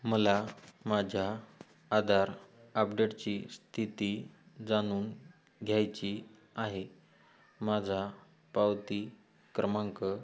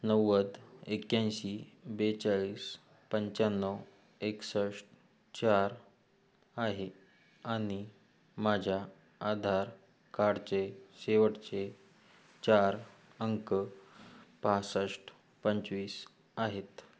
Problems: background sounds at intervals